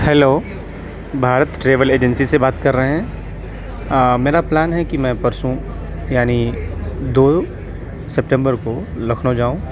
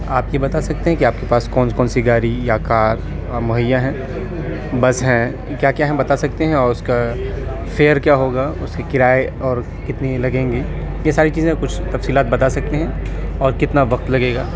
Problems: constant background noise, continuous background conversations